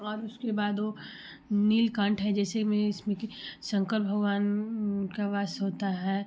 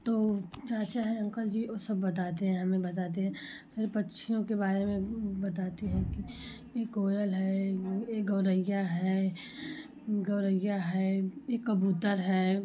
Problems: none marked